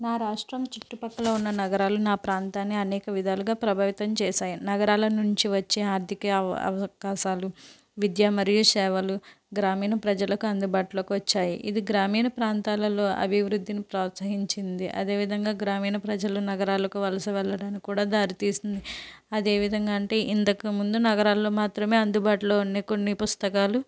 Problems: constant background noise